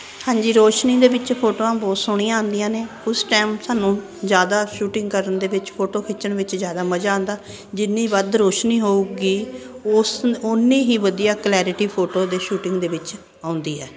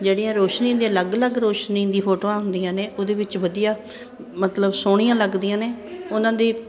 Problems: constant background noise